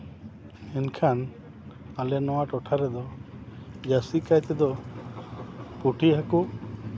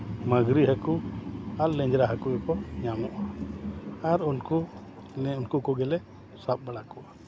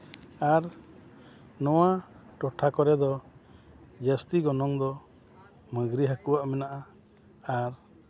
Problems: none marked